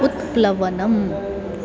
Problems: background sounds at intervals